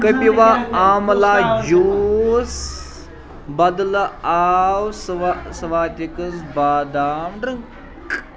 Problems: constant background noise, continuous background conversations